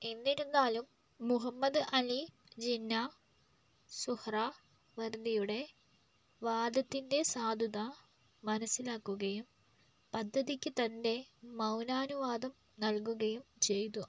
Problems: low volume